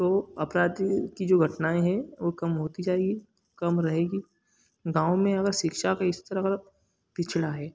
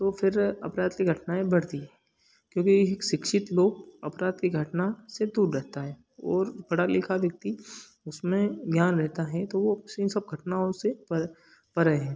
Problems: background sounds at intervals